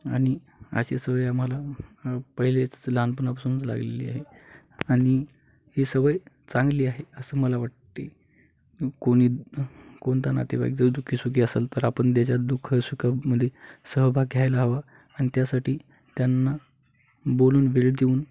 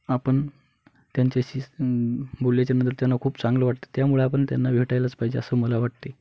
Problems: background sounds at intervals